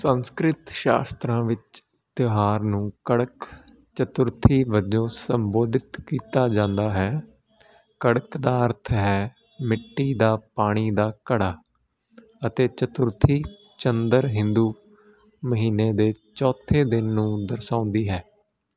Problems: constant background noise